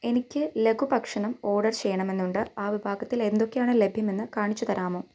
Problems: low volume